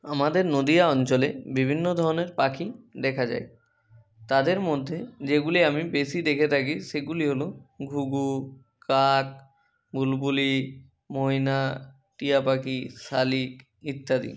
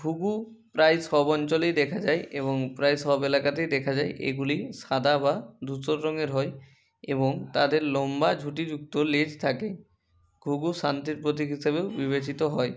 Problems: none marked